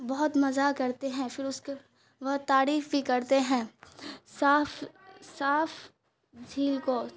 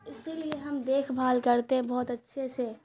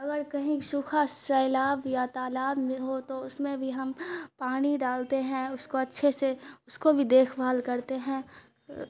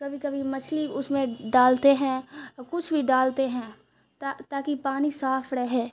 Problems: constant background noise